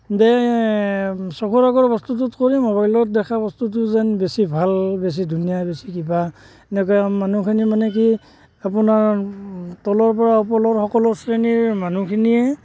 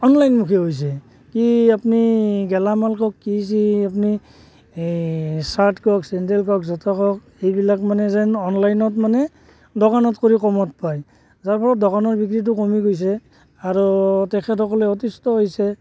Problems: constant background noise, background conversations at intervals